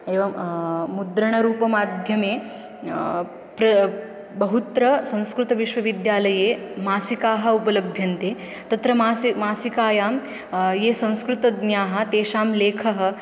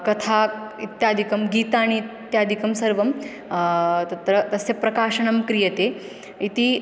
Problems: background sounds at intervals